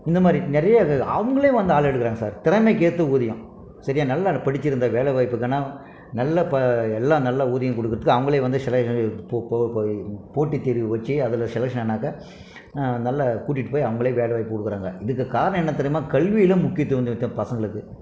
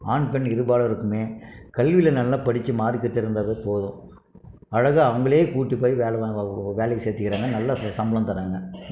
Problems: none marked